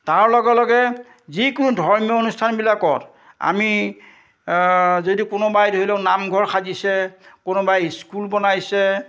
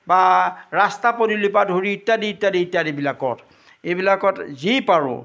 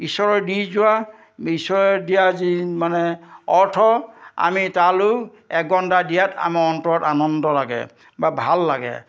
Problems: none marked